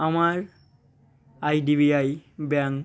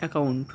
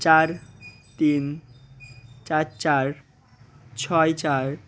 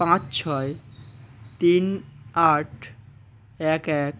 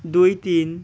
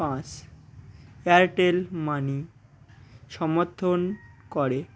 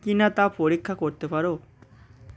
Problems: background sounds at intervals